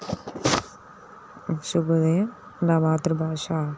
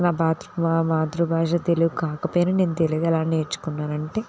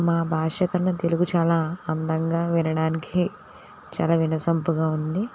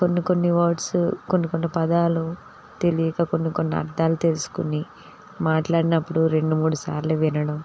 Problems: constant background noise